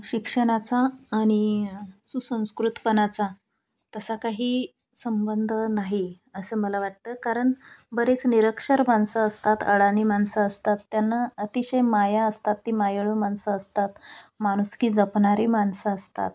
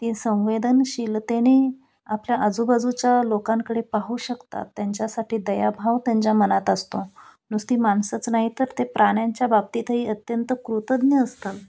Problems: none marked